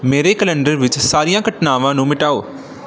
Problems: background sounds at intervals